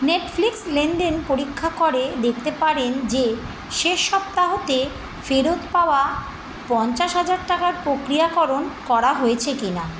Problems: constant background noise